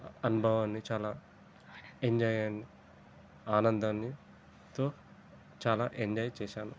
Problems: constant background noise, low volume